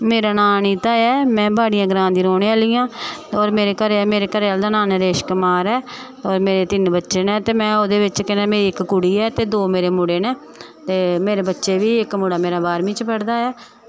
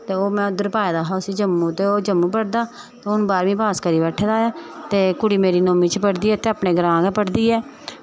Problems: none marked